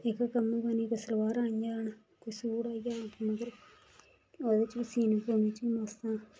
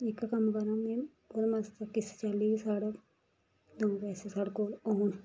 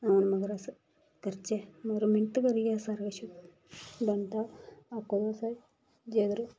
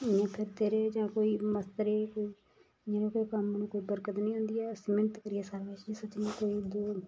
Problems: constant background noise, background conversations at intervals, low volume